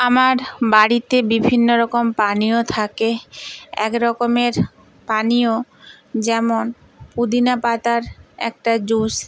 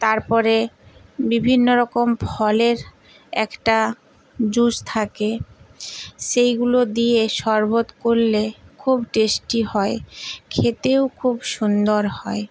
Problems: background sounds at intervals